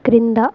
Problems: constant background noise, background conversations at intervals